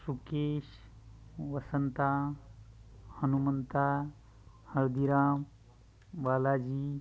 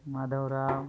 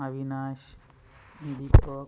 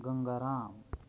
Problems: constant background noise, continuous background conversations